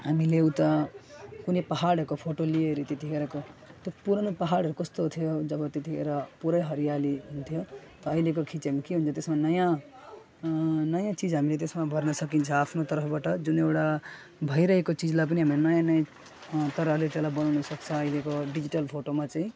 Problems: constant background noise